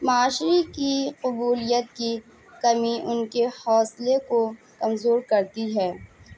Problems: constant background noise